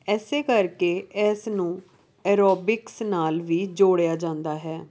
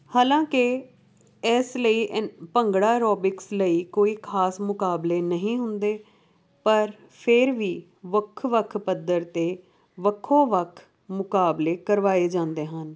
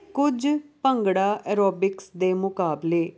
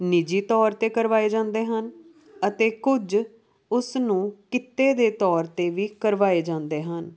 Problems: background sounds at intervals